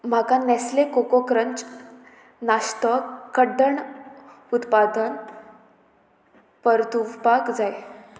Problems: none marked